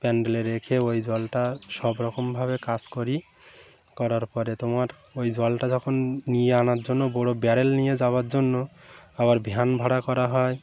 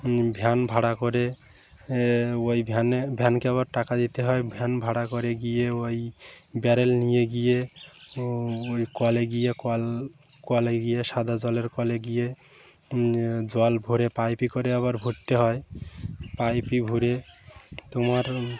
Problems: none marked